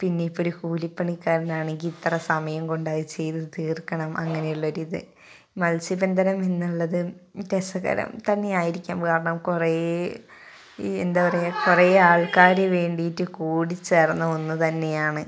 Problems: background conversations at intervals